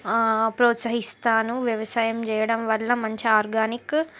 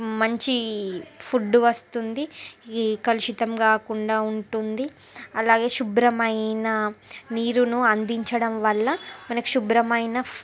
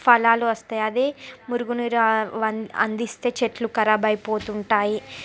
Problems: background sounds at intervals